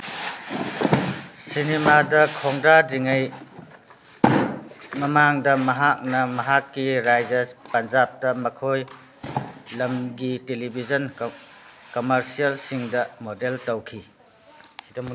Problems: background sounds at intervals